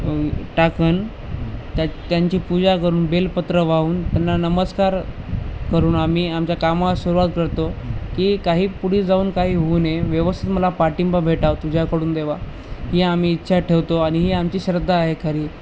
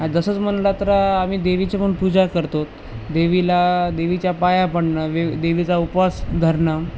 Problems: constant background noise